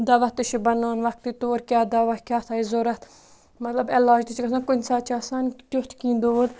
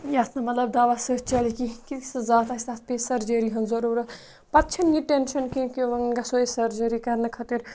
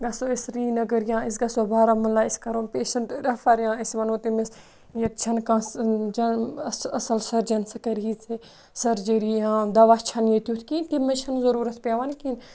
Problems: none marked